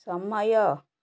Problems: none marked